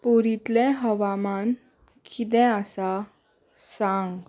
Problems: background sounds at intervals